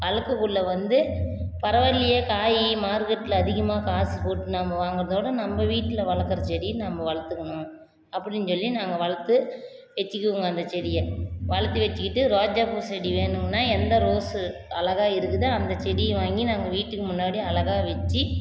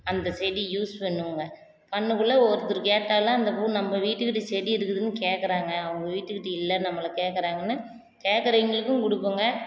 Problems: constant background noise